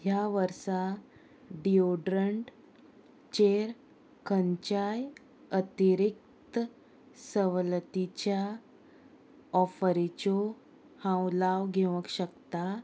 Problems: none marked